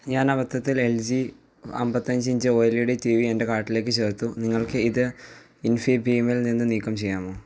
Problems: low volume